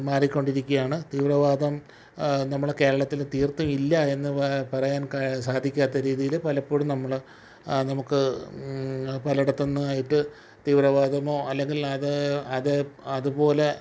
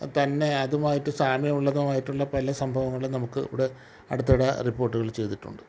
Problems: none marked